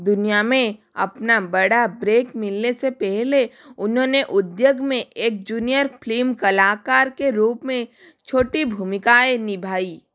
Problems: background sounds at intervals